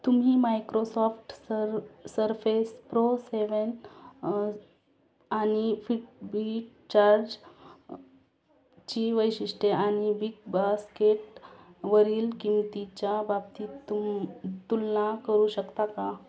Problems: constant background noise